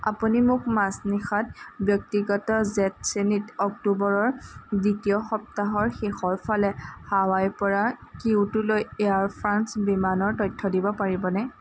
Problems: constant background noise